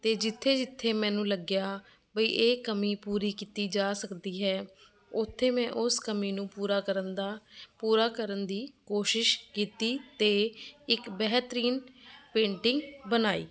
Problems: none marked